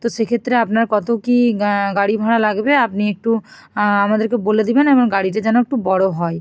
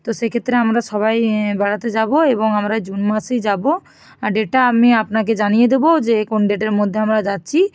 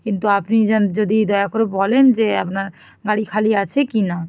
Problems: none marked